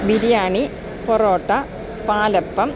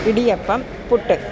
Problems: none marked